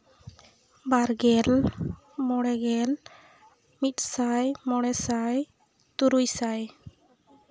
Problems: background sounds at intervals